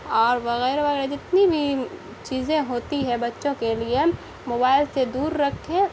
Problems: constant background noise